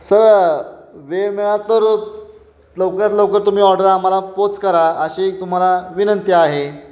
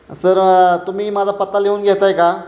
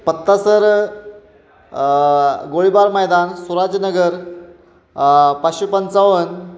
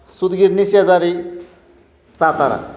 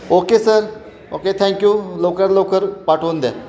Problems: constant background noise, background conversations at intervals